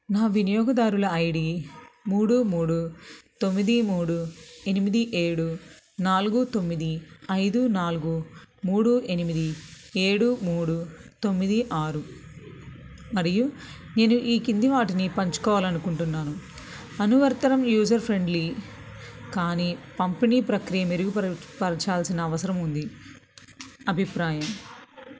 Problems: background sounds at intervals